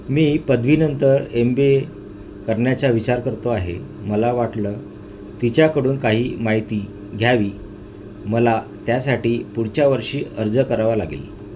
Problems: constant background noise